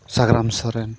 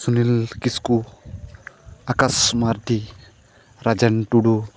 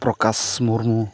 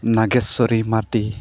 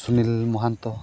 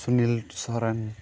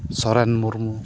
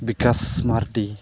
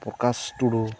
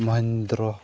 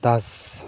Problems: constant background noise, continuous background conversations